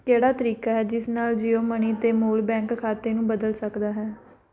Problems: background sounds at intervals